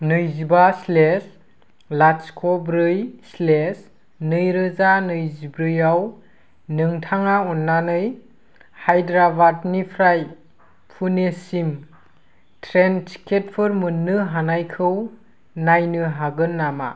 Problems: constant background noise